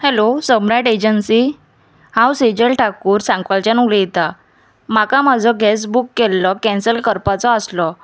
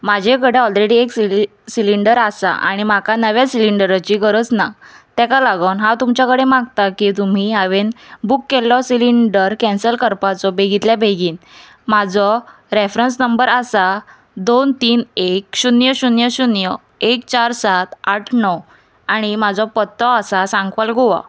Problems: background conversations at intervals